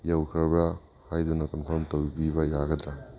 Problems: background sounds at intervals